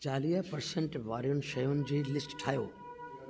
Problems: constant background noise, echo